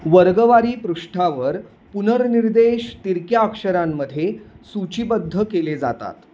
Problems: constant background noise